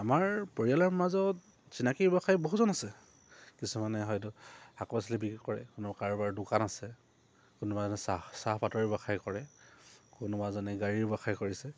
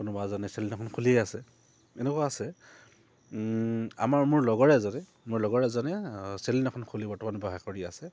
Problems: low volume